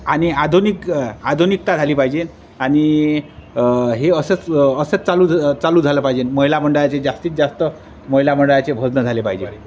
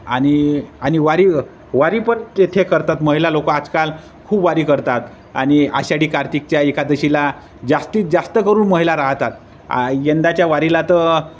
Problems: constant background noise, background conversations at intervals